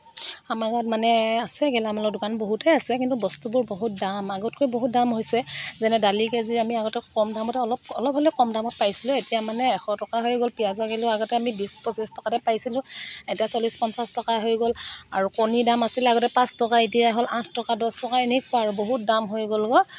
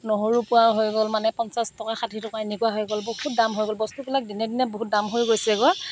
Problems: none marked